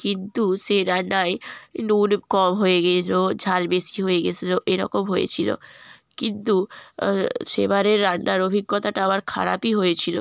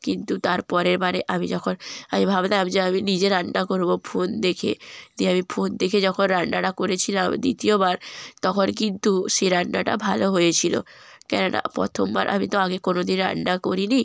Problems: background sounds at intervals